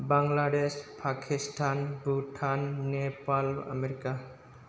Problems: constant background noise